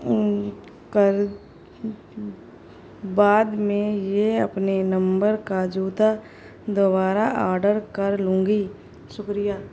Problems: constant background noise